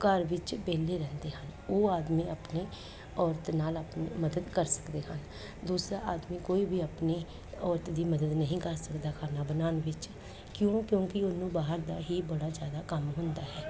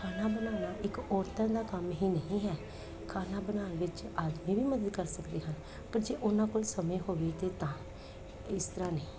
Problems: constant background noise